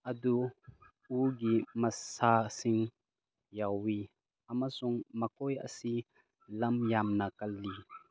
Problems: background sounds at intervals